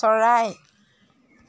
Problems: none marked